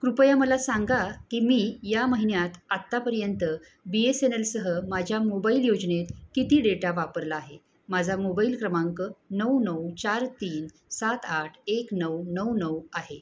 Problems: constant background noise